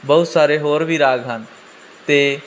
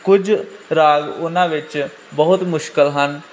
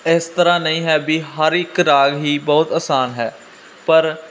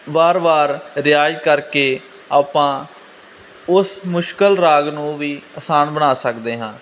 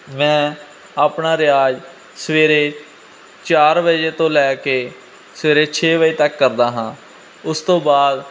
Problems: constant background noise